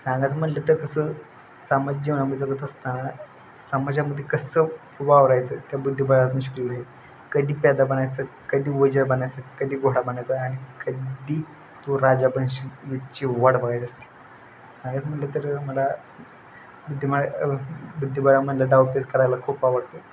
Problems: none marked